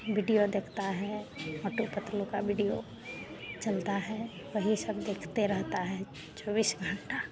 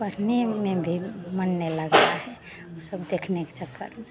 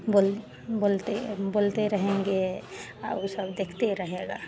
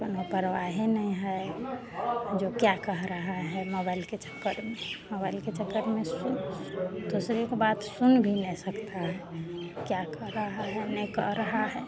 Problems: constant background noise